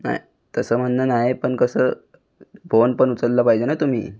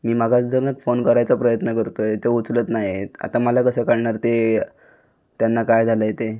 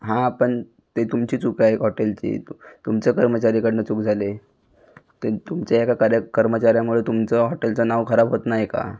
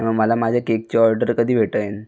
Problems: constant background noise, background conversations at intervals